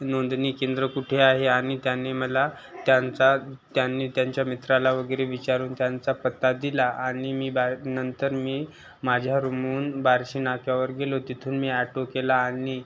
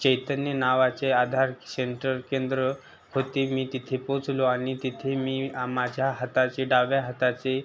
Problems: constant background noise, continuous background conversations